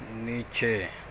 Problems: constant background noise, low volume